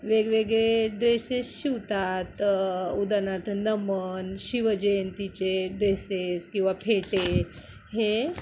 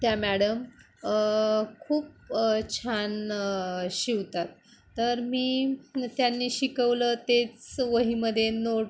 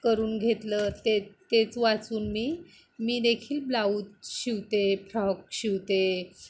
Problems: constant background noise